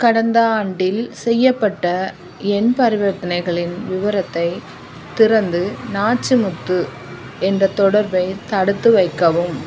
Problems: constant background noise